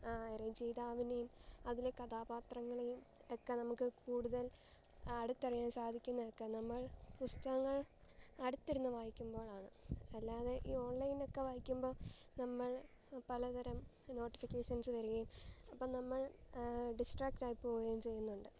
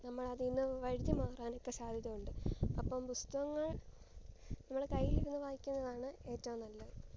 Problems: low volume